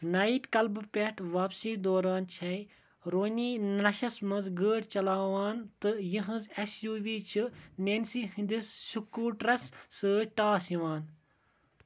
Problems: constant background noise